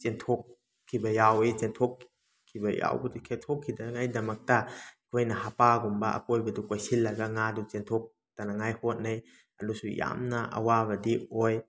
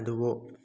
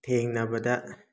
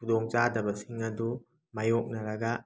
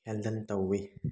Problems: background sounds at intervals